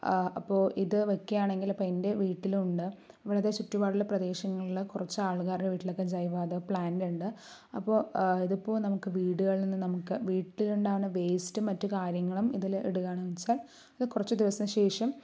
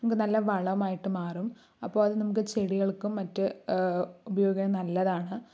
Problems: low volume